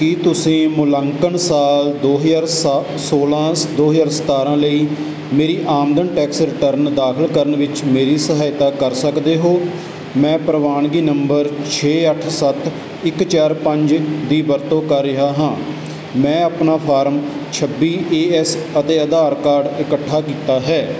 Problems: none marked